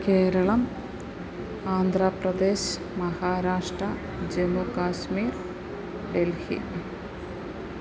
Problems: constant background noise